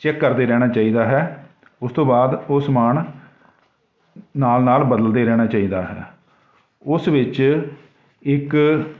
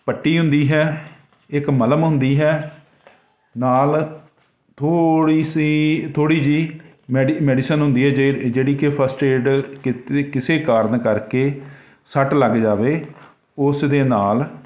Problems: none marked